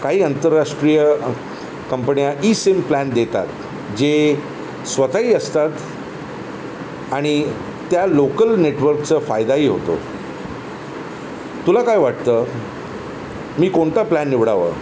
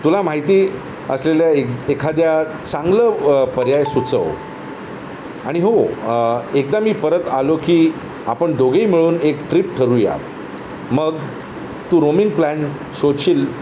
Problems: constant background noise